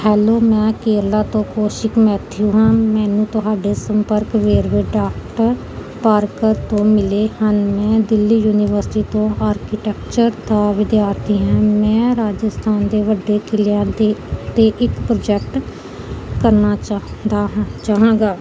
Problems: none marked